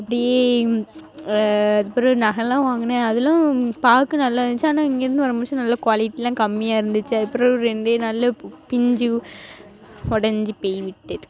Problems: constant background noise